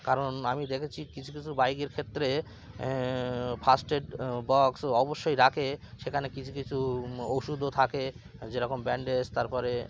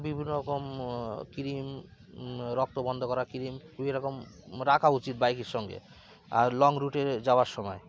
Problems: constant background noise, continuous background conversations